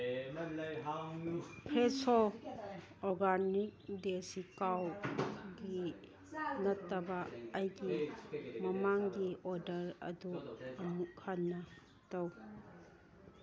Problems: background conversations at intervals